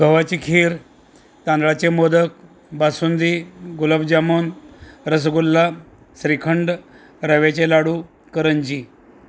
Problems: constant background noise